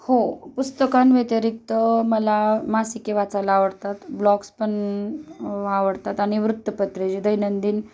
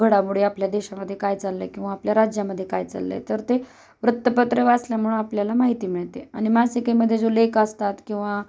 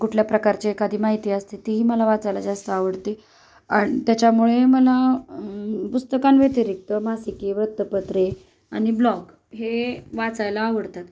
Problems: none marked